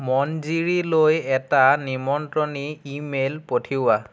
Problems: none marked